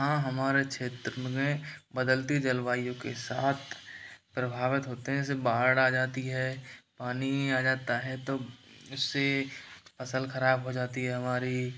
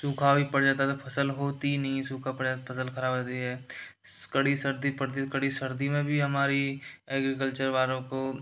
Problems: background sounds at intervals